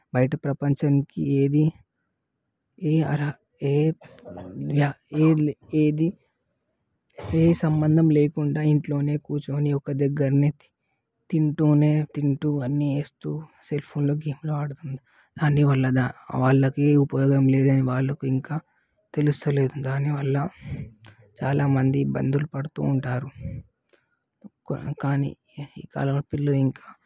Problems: background sounds at intervals, background conversations at intervals